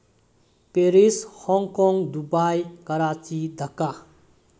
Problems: low volume